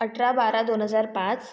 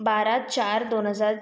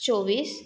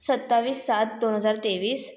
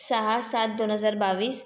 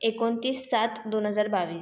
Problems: constant background noise, echo